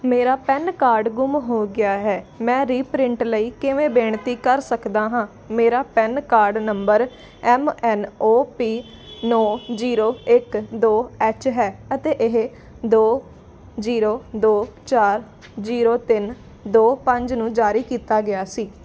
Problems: constant background noise